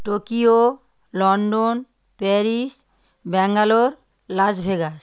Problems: constant background noise